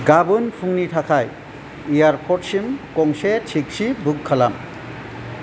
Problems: constant background noise